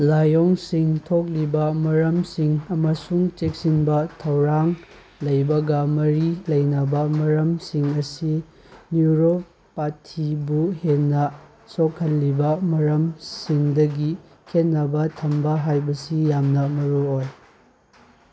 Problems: background sounds at intervals